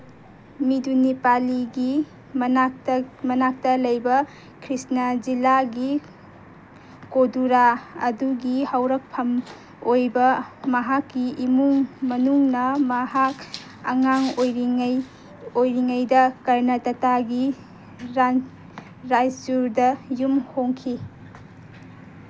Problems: background sounds at intervals